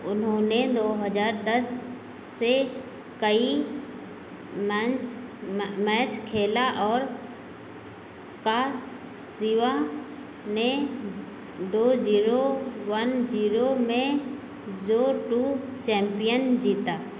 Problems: none marked